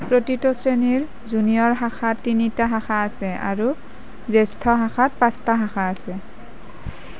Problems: constant background noise